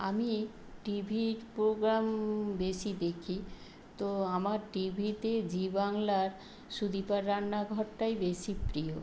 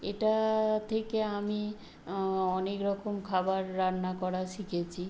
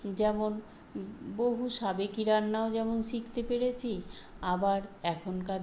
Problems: constant background noise